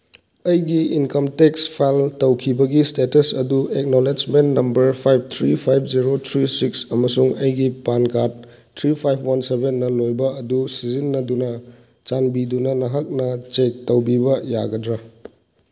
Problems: none marked